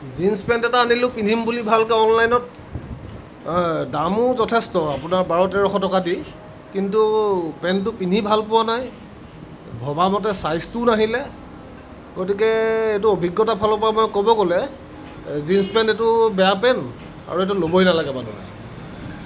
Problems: none marked